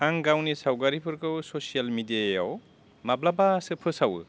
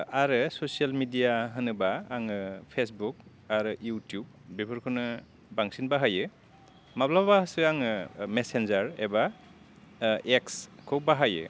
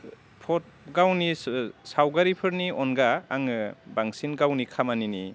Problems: low volume